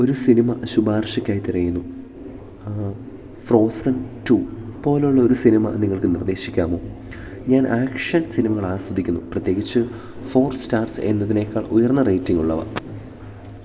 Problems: background sounds at intervals